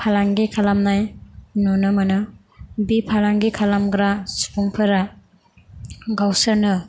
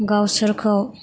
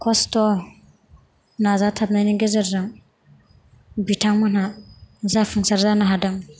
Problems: constant background noise